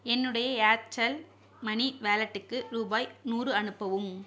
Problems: none marked